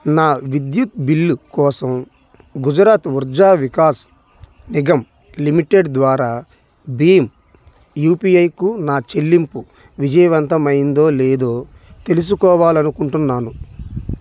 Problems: background sounds at intervals